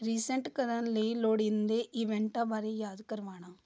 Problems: none marked